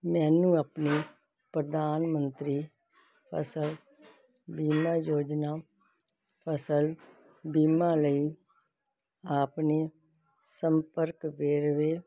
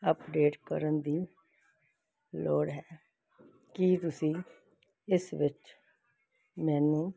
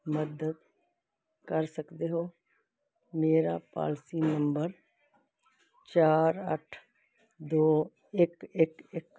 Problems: none marked